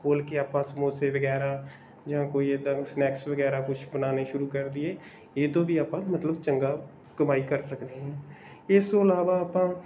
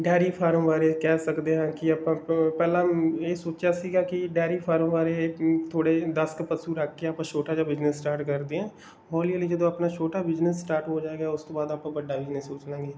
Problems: background sounds at intervals